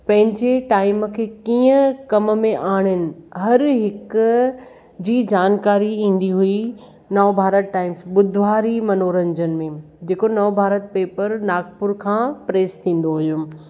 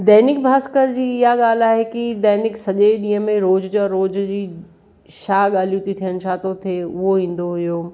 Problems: none marked